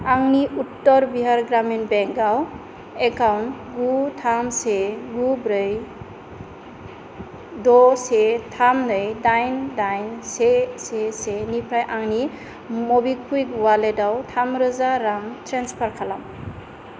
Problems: constant background noise